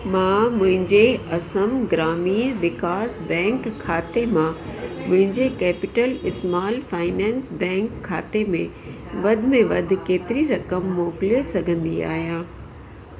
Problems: constant background noise, echo